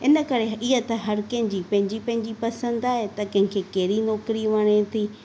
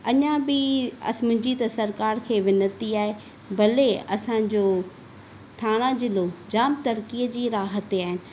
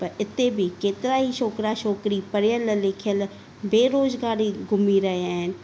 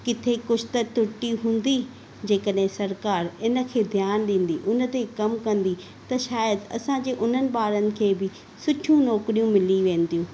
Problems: none marked